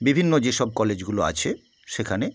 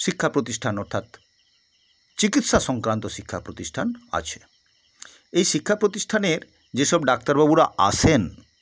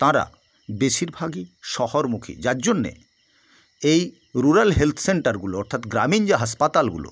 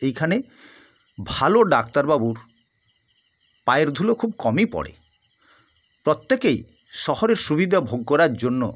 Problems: constant background noise